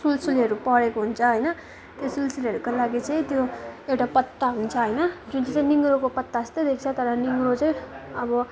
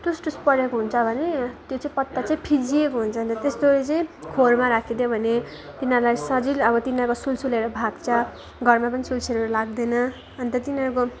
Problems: none marked